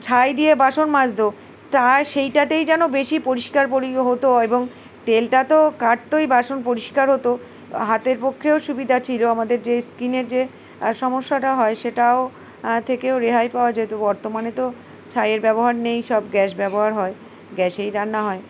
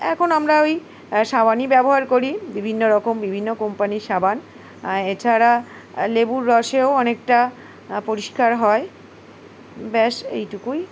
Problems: background sounds at intervals